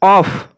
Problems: constant background noise